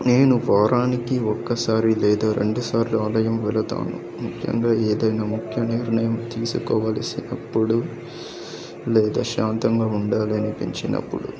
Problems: background conversations at intervals